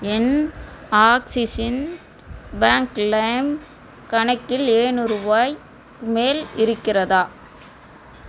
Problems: constant background noise